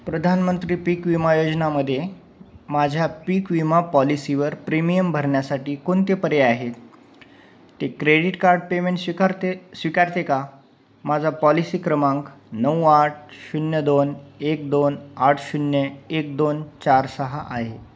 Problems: none marked